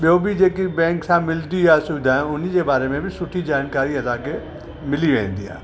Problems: constant background noise, echo